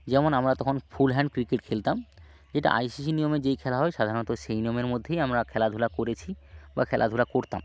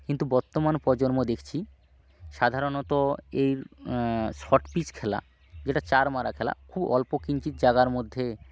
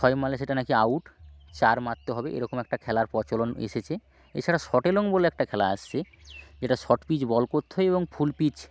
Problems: constant background noise, low volume